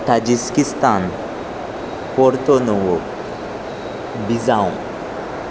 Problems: constant background noise